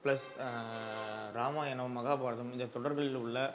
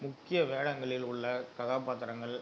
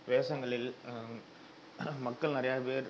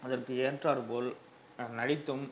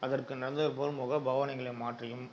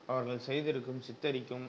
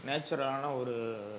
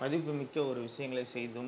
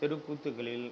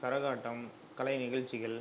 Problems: low volume